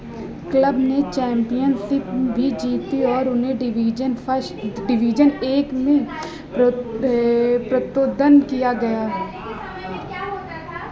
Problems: continuous background conversations